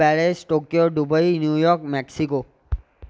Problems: none marked